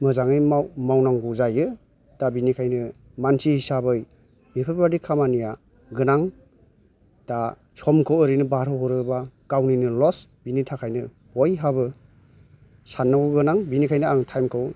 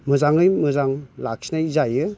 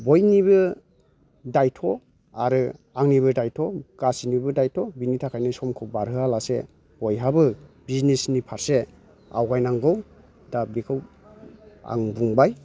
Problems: low volume